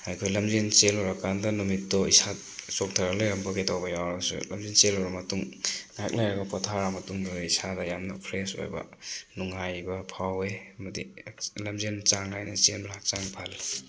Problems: constant background noise